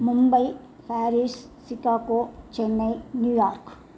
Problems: constant background noise